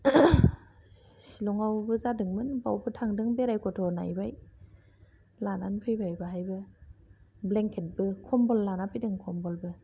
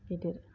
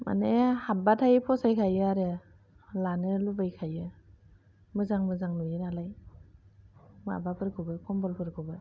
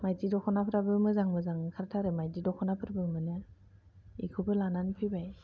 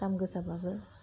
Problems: low volume